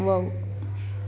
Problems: constant background noise